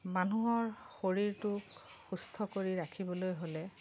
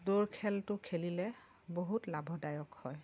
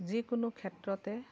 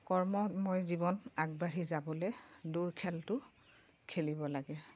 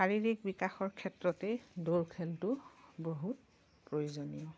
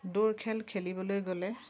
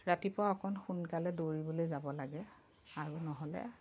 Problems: background sounds at intervals